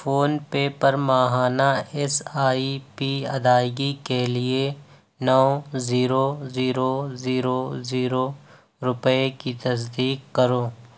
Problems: none marked